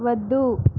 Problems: constant background noise